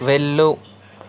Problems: constant background noise